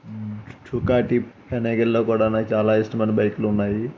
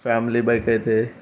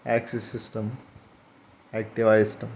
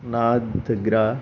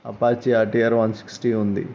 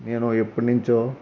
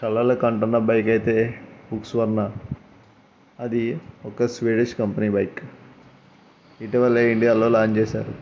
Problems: background sounds at intervals